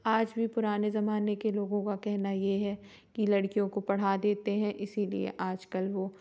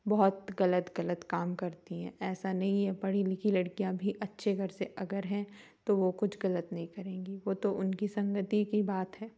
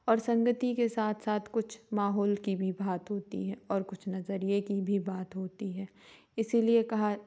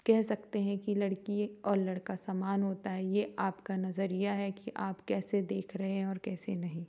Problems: background sounds at intervals